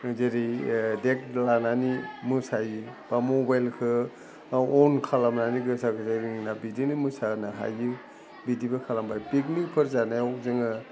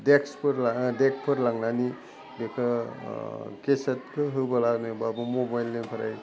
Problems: constant background noise